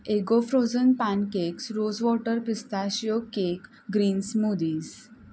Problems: constant background noise